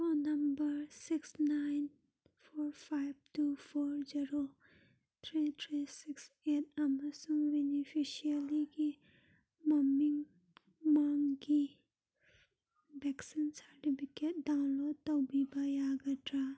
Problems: none marked